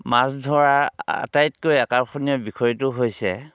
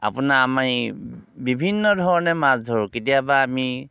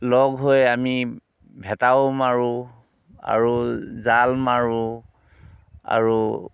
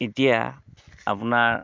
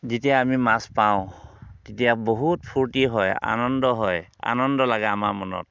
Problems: none marked